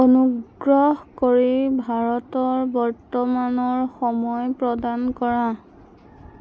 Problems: constant background noise